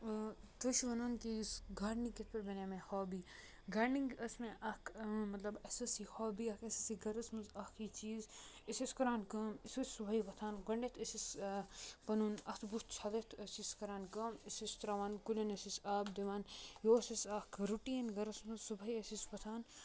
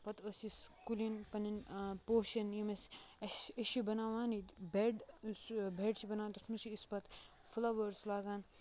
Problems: low volume